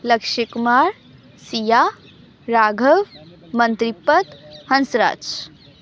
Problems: background conversations at intervals